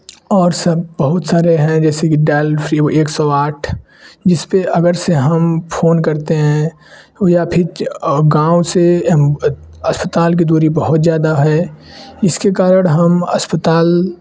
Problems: none marked